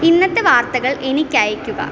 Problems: constant background noise